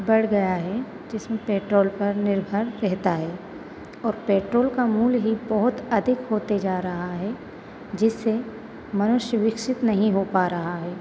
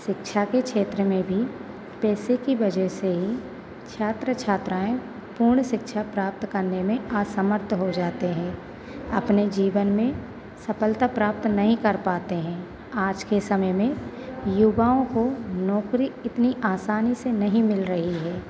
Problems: none marked